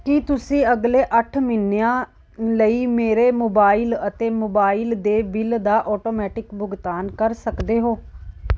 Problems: background sounds at intervals